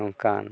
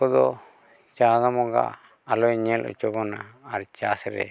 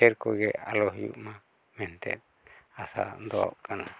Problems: background sounds at intervals, background conversations at intervals